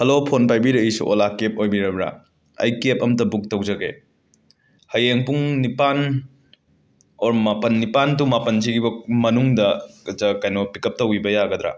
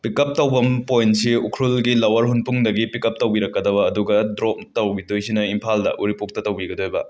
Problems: none marked